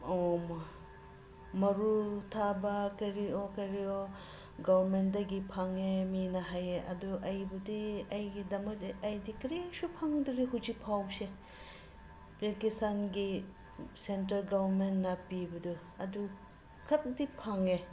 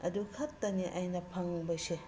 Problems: constant background noise